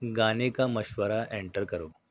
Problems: none marked